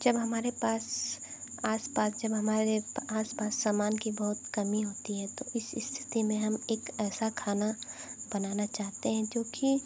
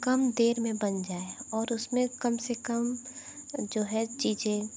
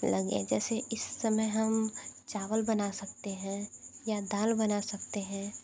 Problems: constant background noise, low volume